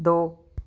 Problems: none marked